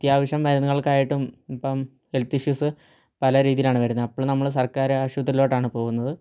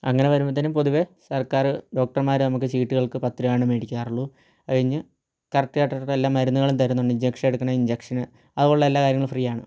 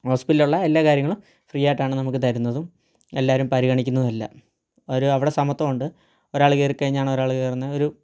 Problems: low volume